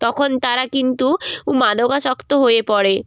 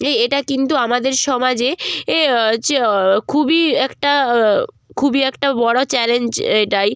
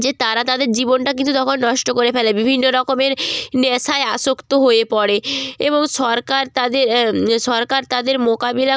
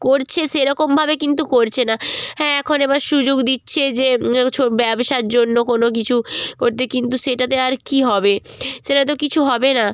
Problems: background sounds at intervals